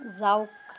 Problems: background sounds at intervals